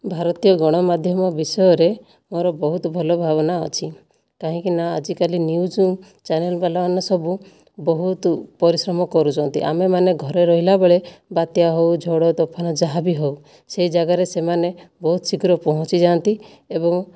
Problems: none marked